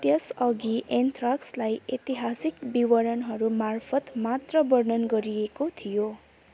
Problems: none marked